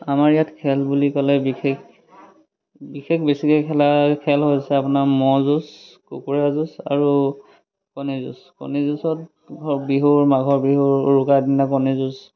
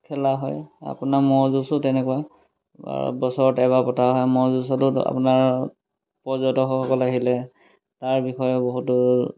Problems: none marked